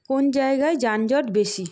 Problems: background sounds at intervals